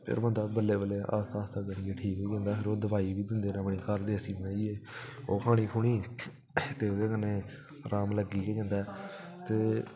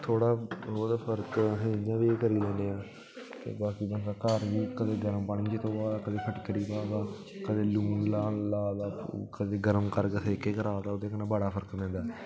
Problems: background sounds at intervals